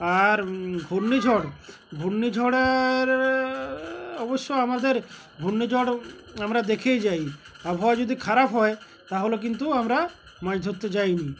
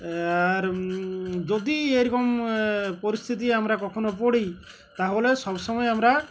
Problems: constant background noise, continuous background conversations